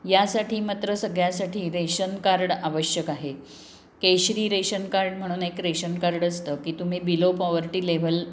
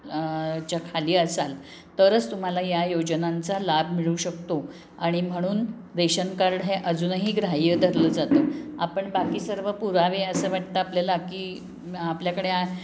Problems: background sounds at intervals, background conversations at intervals